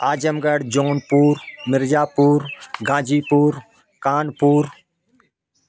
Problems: continuous background conversations